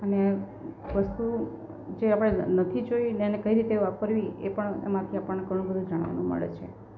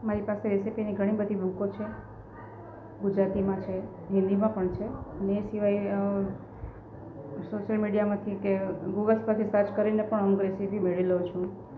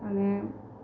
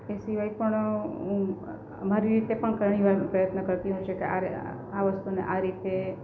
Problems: constant background noise